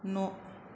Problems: constant background noise